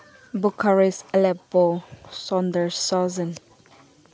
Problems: background sounds at intervals